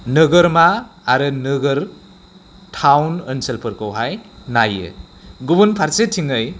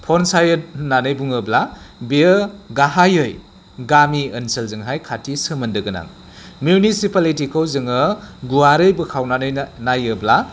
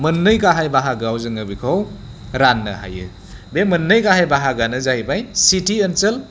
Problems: constant background noise